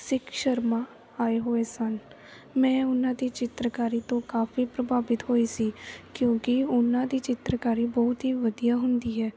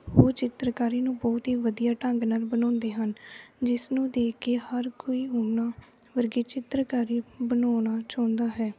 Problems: none marked